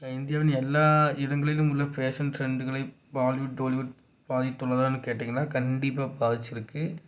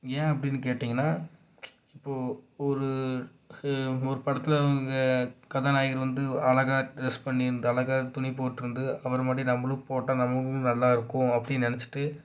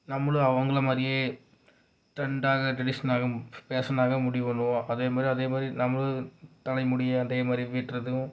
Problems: low volume